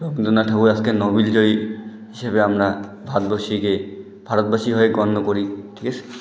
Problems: constant background noise